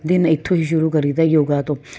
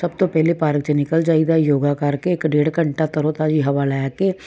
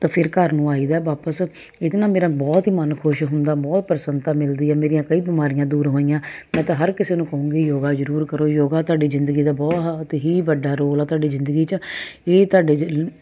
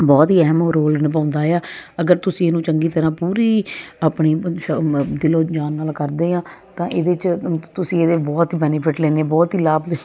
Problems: none marked